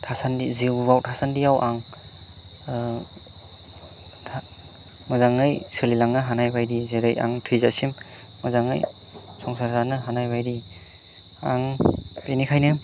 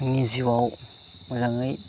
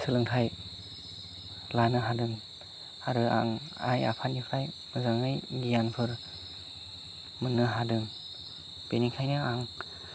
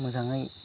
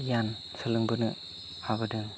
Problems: constant background noise